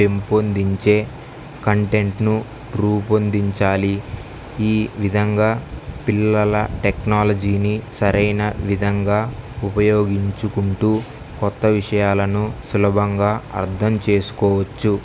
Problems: none marked